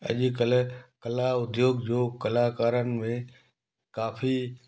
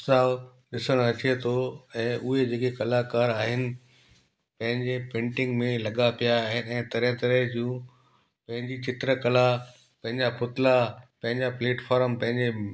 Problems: constant background noise, echo